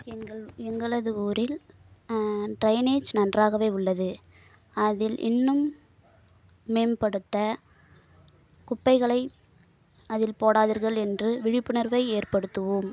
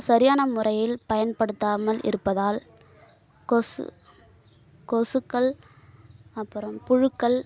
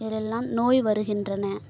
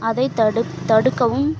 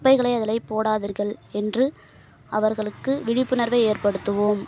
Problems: background sounds at intervals